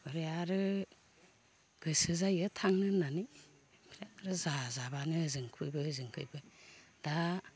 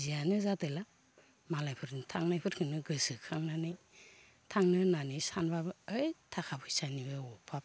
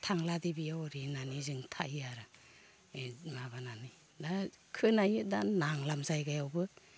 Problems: low volume